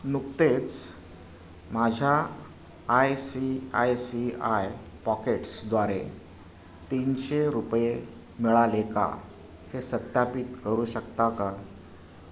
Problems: background sounds at intervals